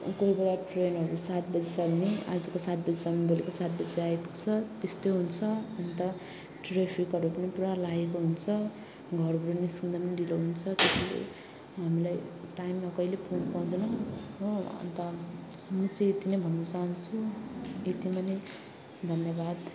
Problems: constant background noise